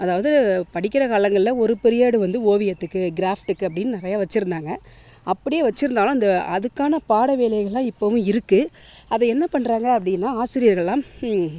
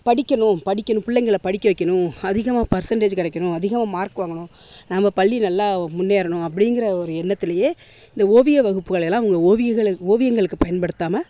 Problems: none marked